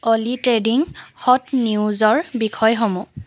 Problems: constant background noise